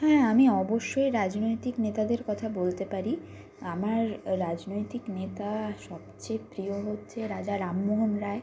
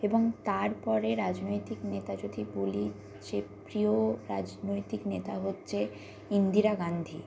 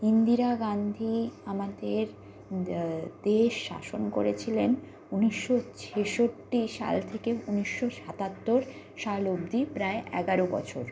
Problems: constant background noise